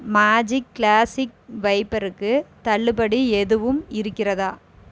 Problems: none marked